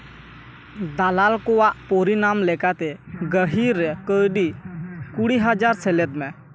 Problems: background sounds at intervals, background conversations at intervals